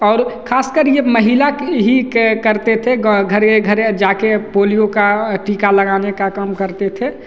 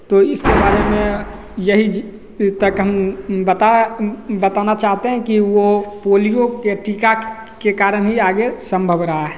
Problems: none marked